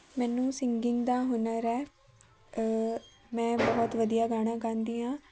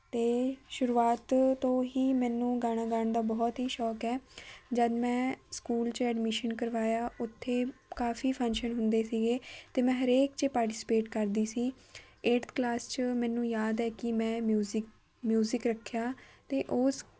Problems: constant background noise